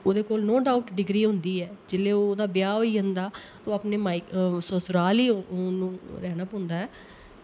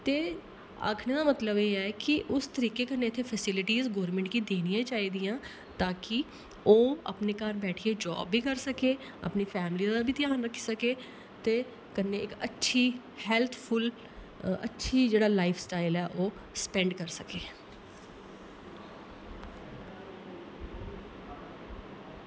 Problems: constant background noise